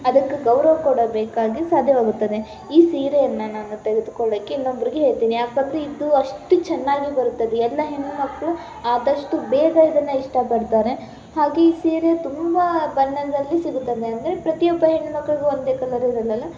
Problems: background sounds at intervals